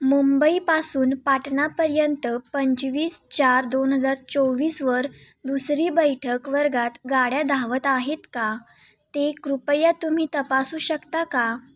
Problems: constant background noise